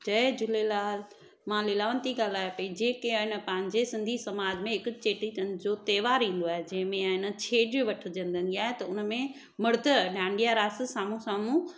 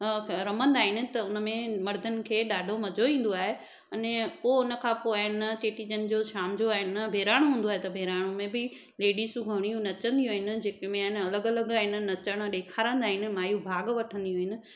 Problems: echo